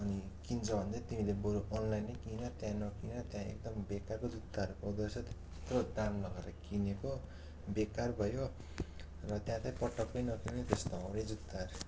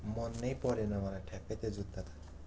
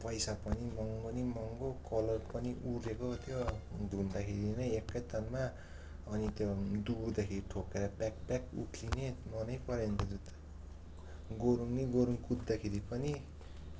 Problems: constant background noise